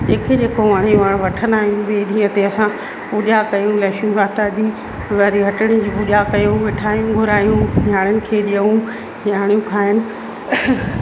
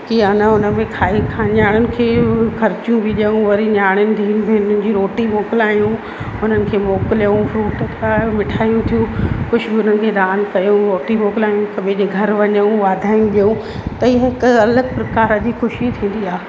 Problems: constant background noise, echo